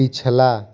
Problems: continuous background conversations